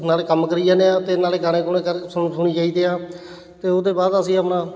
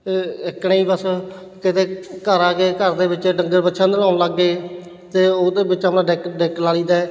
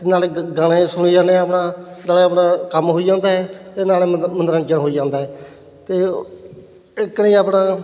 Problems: constant background noise